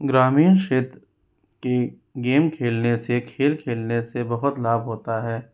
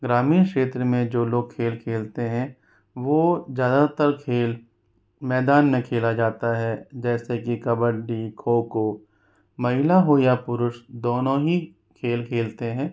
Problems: constant background noise